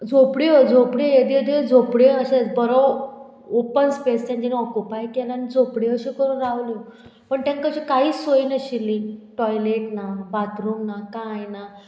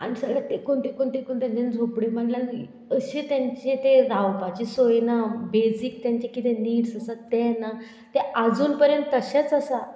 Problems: background sounds at intervals